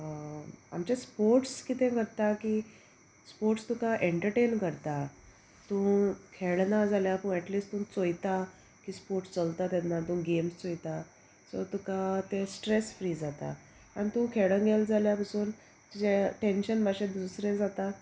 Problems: constant background noise